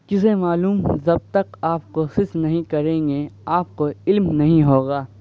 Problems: background sounds at intervals